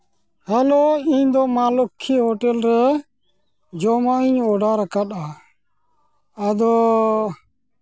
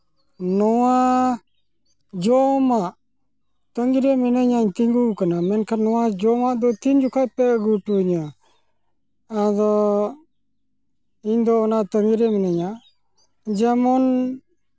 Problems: none marked